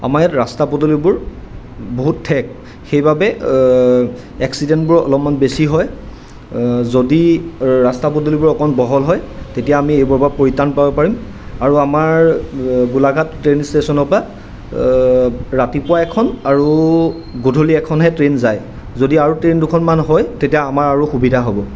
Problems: constant background noise